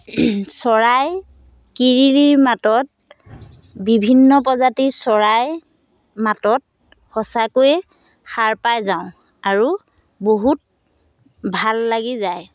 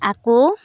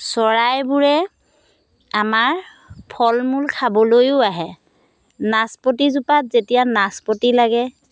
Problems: constant background noise